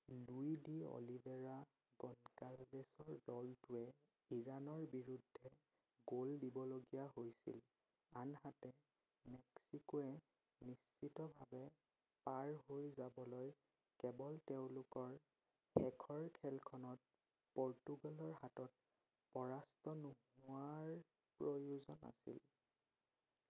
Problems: none marked